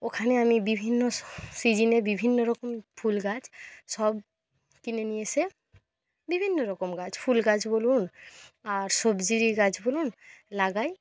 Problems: none marked